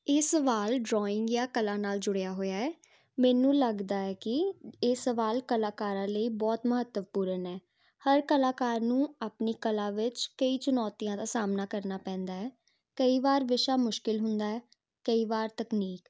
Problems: constant background noise